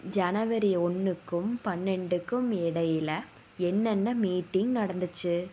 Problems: background sounds at intervals